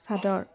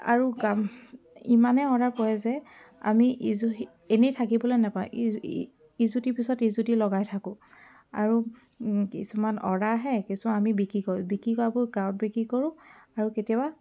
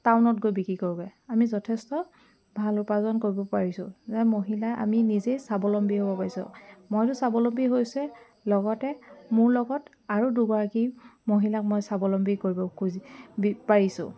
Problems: background sounds at intervals